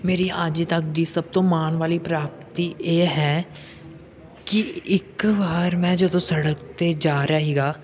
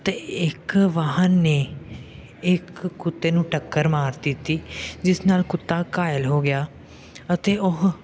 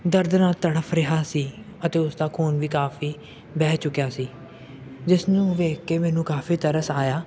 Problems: background sounds at intervals, background conversations at intervals